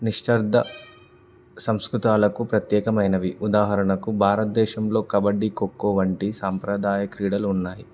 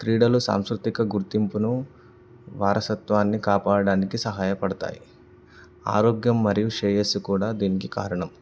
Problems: background sounds at intervals